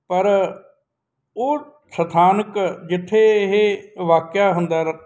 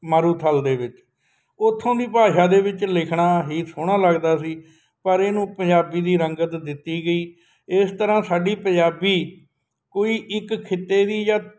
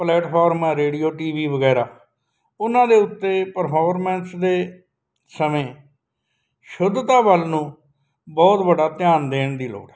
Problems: none marked